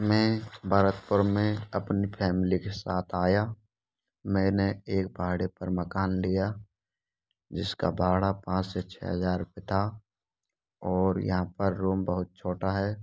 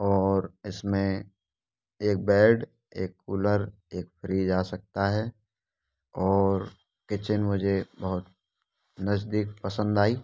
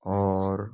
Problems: none marked